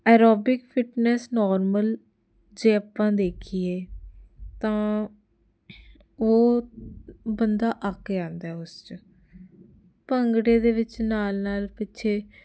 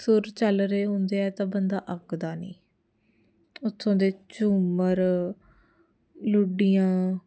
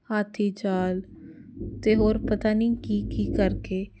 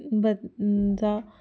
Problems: none marked